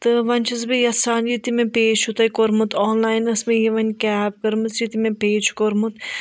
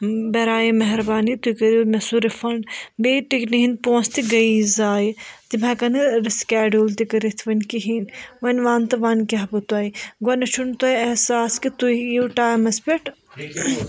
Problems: background conversations at intervals